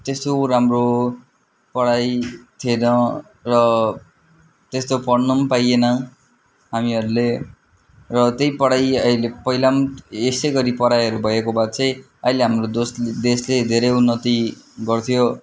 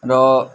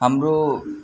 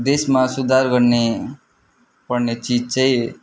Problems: continuous background conversations